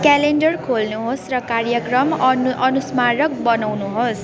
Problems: background sounds at intervals